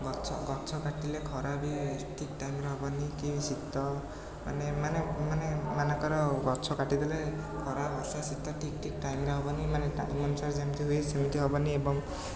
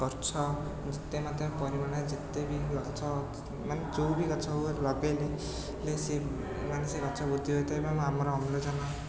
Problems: constant background noise, continuous background conversations